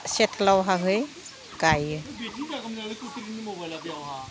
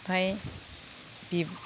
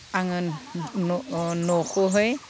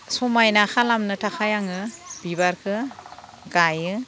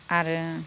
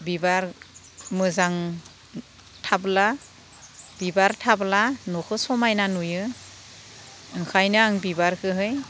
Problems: constant background noise